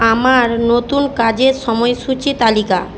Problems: constant background noise